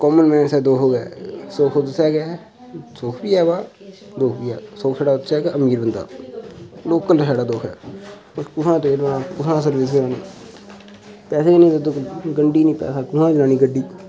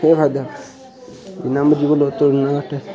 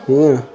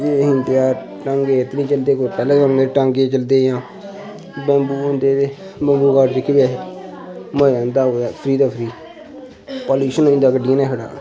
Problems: none marked